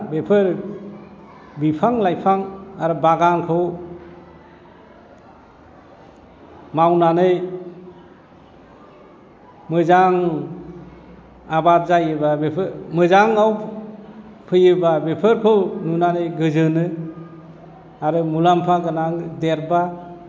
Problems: none marked